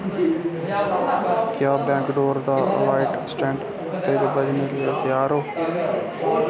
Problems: constant background noise